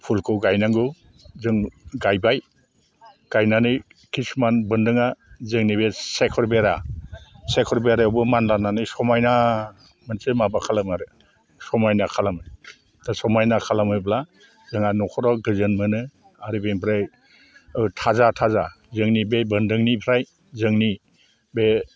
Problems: low volume